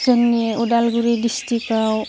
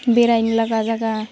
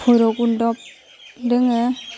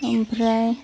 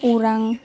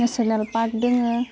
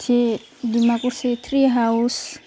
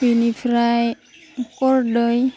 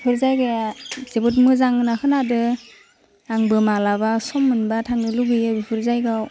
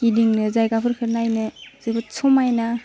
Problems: constant background noise